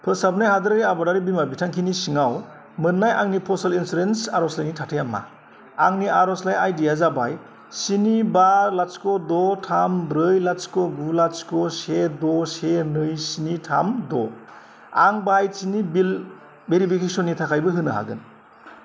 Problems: constant background noise